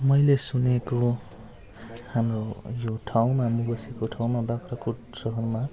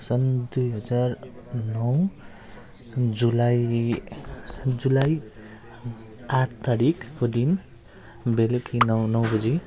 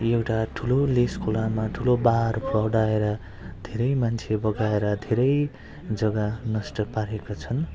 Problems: background sounds at intervals